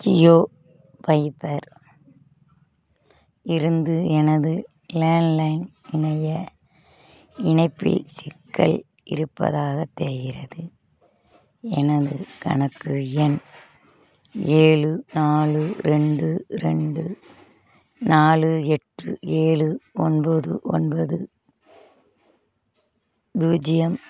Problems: constant background noise, background conversations at intervals